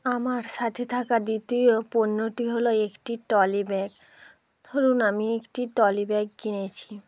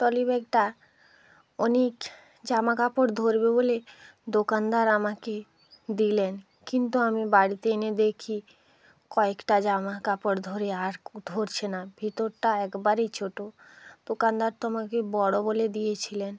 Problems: background sounds at intervals